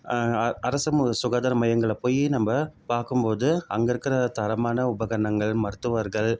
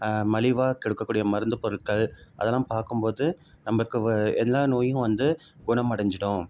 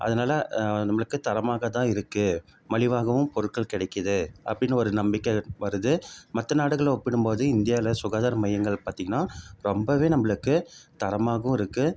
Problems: none marked